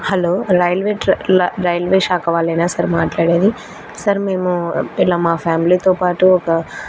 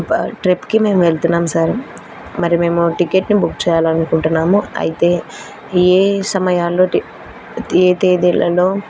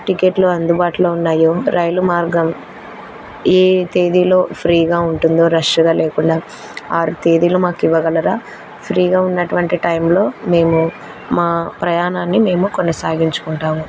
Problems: constant background noise